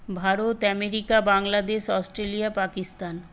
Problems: constant background noise